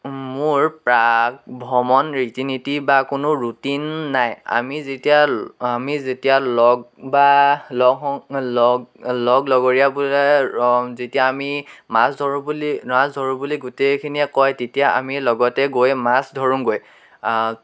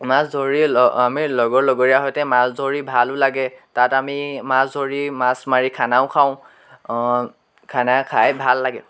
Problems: none marked